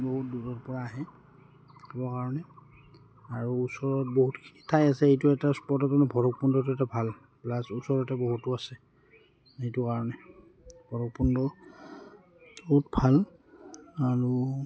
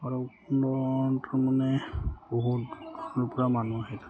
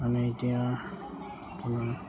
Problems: background sounds at intervals